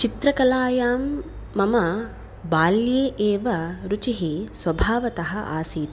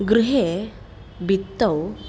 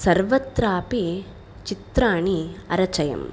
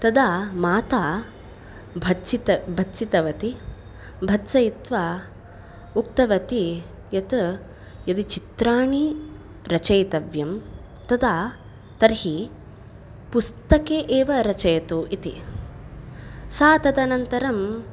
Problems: none marked